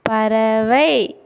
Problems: constant background noise